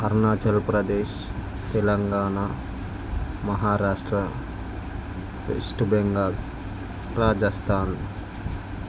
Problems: constant background noise